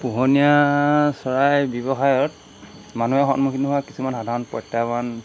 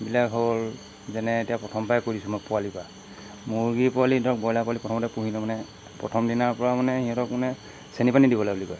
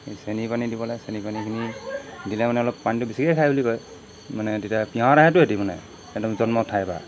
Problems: none marked